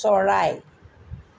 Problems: constant background noise